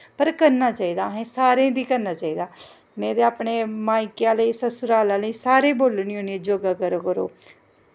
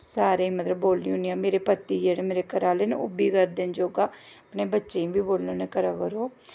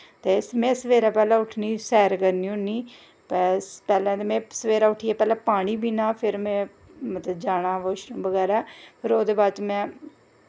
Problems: none marked